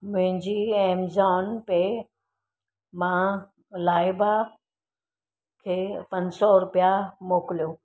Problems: none marked